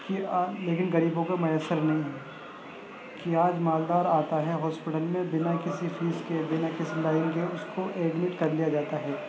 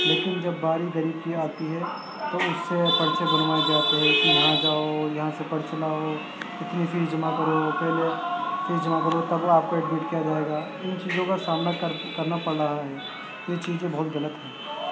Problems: constant background noise, background conversations at intervals, low volume